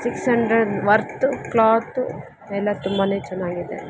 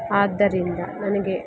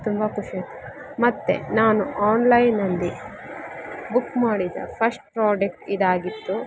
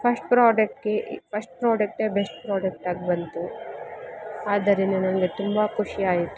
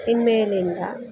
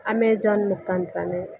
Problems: constant background noise